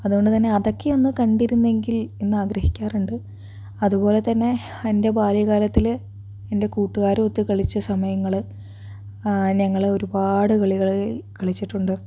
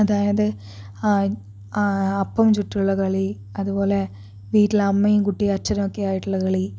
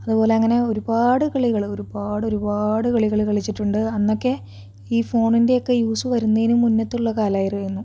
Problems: background sounds at intervals